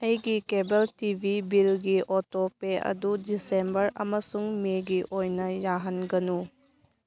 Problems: none marked